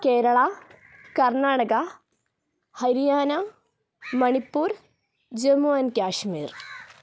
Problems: none marked